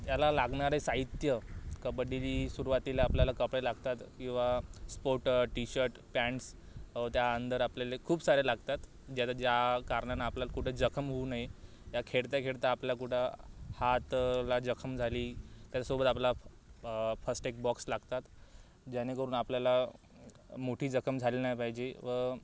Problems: background sounds at intervals